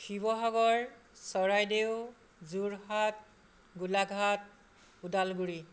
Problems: none marked